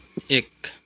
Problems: none marked